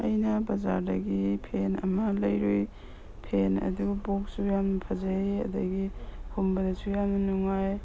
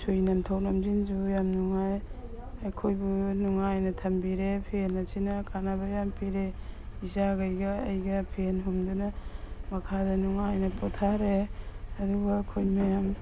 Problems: background sounds at intervals